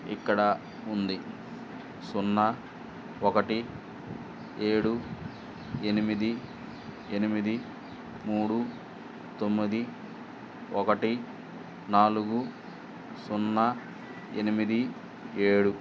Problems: constant background noise